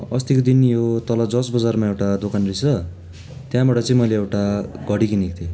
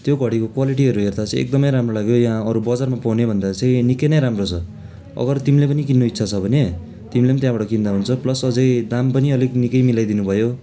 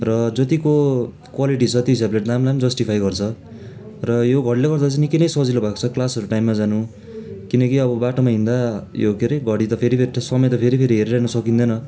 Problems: constant background noise